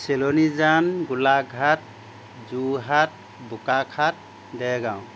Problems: constant background noise